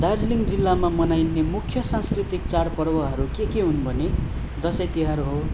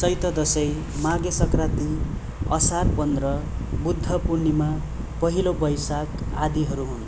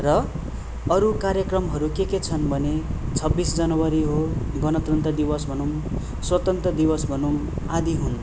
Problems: background sounds at intervals